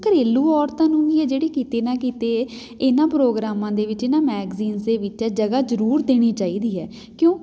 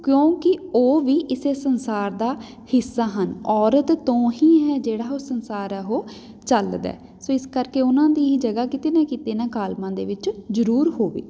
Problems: background sounds at intervals